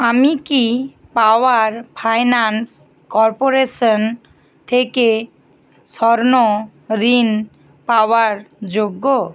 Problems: constant background noise